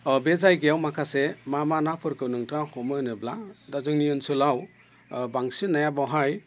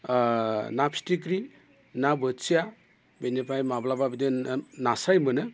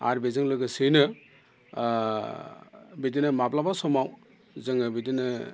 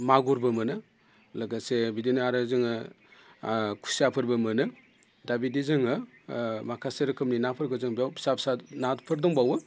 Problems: constant background noise